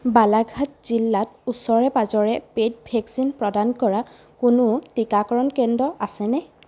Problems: constant background noise